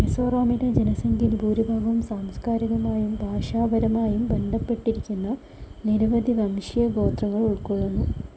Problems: none marked